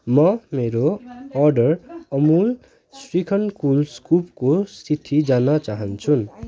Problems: continuous background conversations